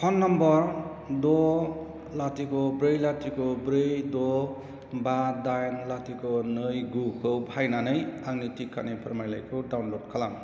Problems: constant background noise